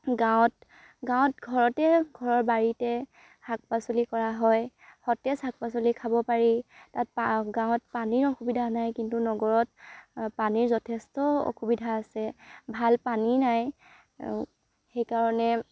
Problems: none marked